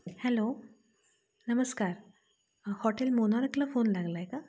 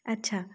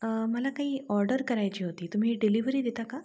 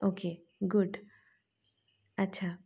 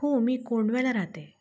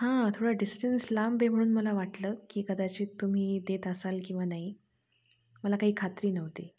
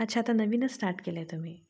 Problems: none marked